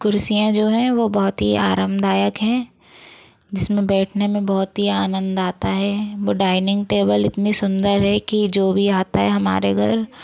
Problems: none marked